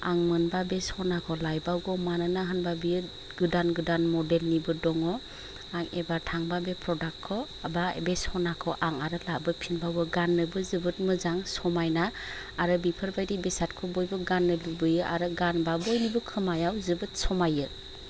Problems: constant background noise